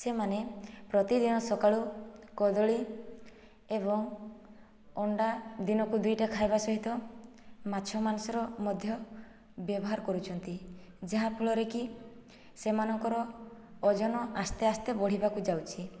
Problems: low volume